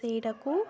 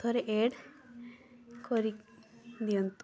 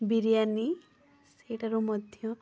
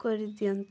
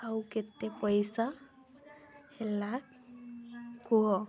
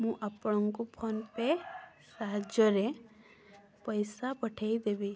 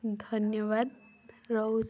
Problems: constant background noise, continuous background conversations